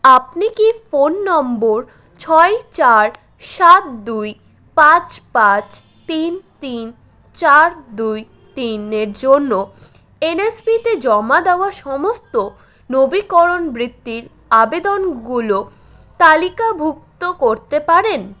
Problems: constant background noise